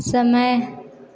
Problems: none marked